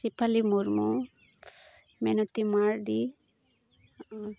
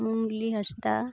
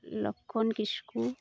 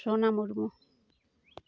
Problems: background sounds at intervals